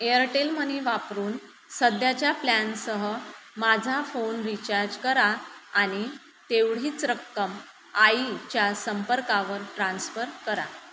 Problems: constant background noise